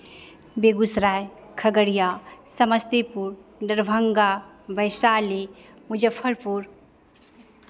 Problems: none marked